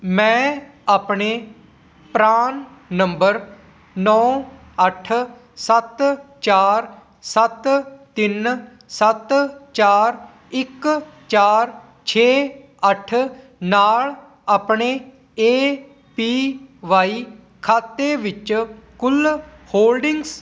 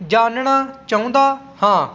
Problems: none marked